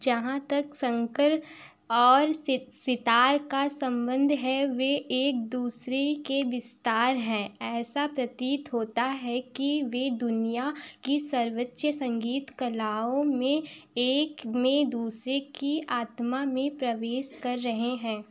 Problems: background sounds at intervals